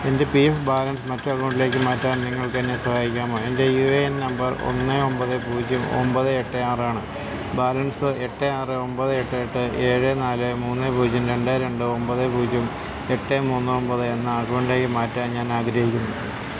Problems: constant background noise